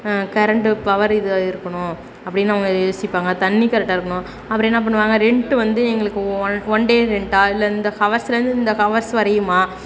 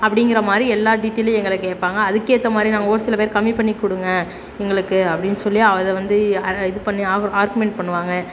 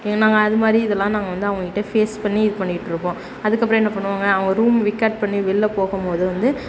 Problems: constant background noise